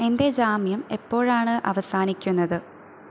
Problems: constant background noise